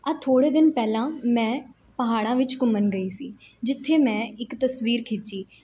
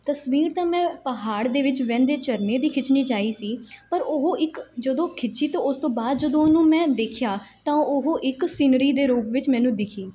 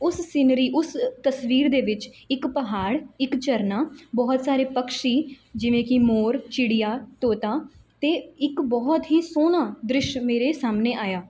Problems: none marked